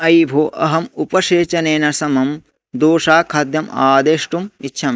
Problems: none marked